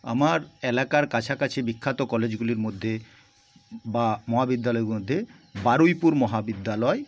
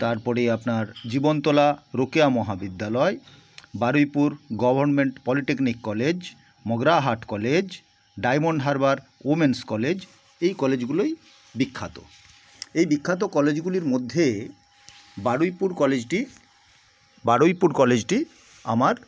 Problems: none marked